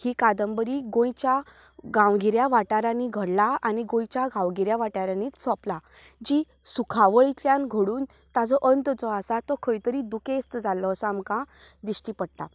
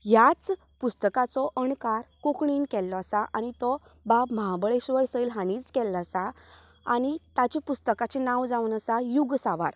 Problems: none marked